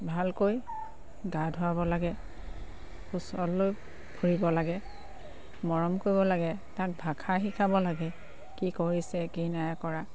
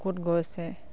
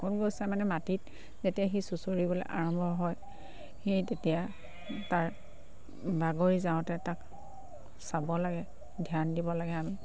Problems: background sounds at intervals